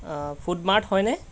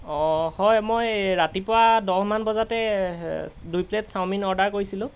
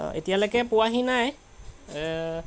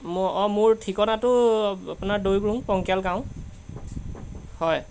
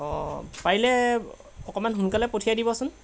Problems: constant background noise